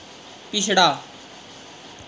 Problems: constant background noise